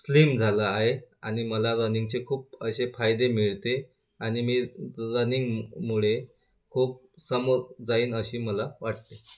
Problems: constant background noise